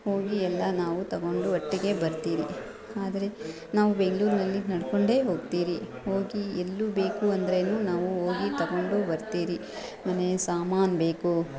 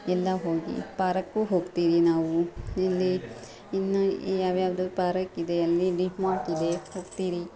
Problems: background sounds at intervals, background conversations at intervals